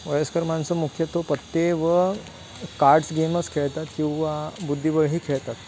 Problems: constant background noise